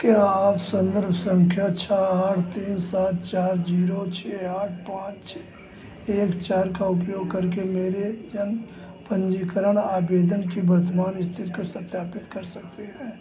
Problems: constant background noise, background conversations at intervals